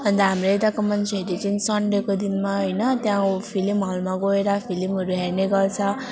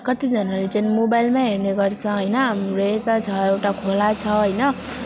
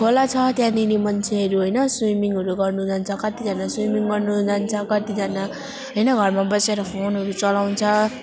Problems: none marked